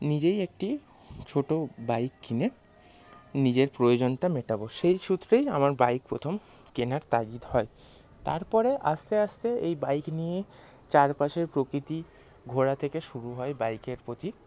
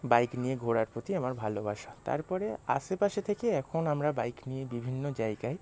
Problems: constant background noise, background conversations at intervals